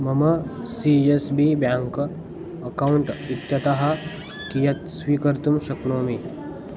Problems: background sounds at intervals